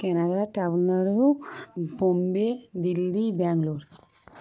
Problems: constant background noise